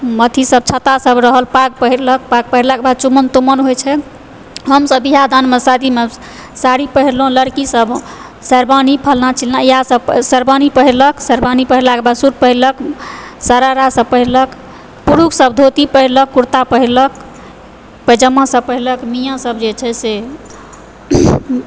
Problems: background sounds at intervals